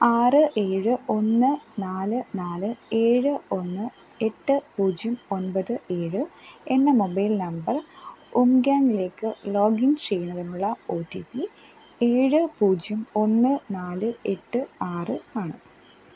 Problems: background sounds at intervals